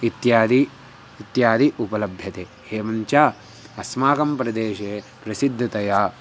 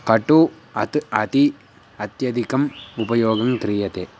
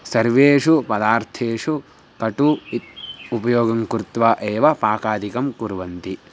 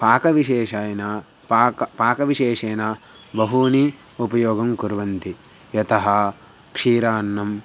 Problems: background sounds at intervals